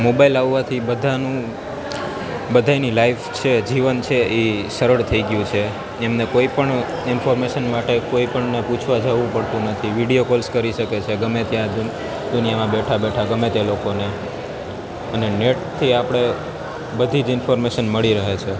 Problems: constant background noise